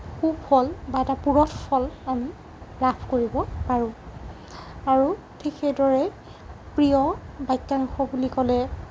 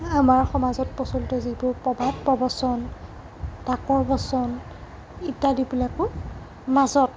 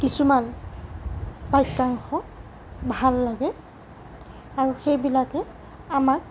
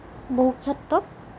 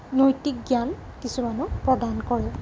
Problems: constant background noise